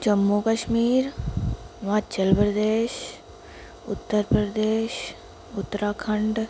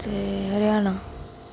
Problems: constant background noise